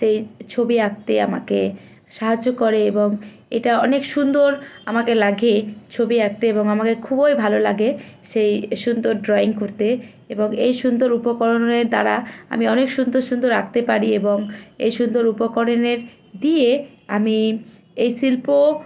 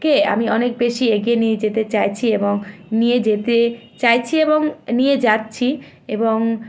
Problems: constant background noise